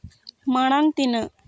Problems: none marked